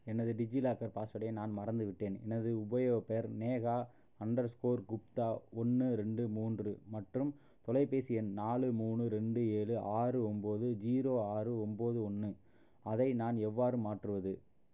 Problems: low volume